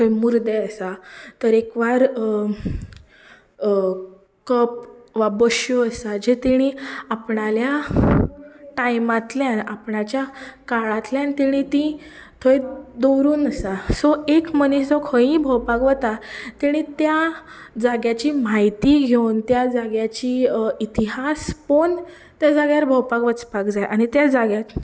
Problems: none marked